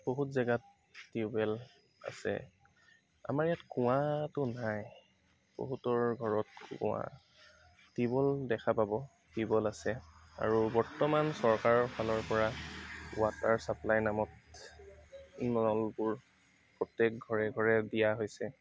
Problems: background sounds at intervals, background conversations at intervals